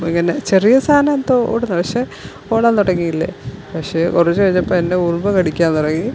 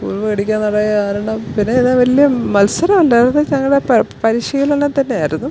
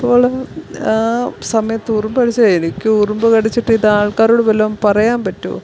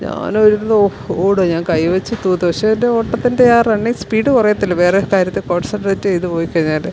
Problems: background sounds at intervals